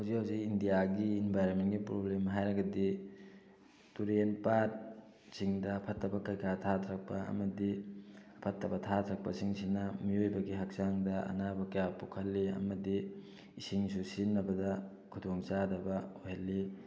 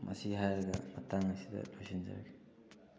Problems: background sounds at intervals